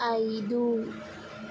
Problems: constant background noise, low volume